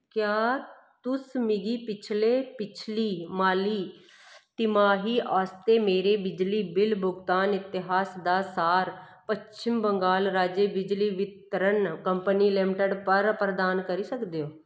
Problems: none marked